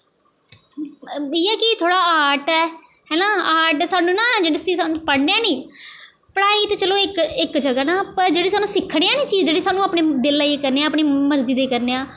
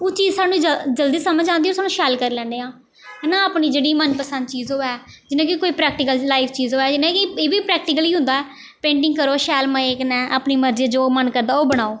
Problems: none marked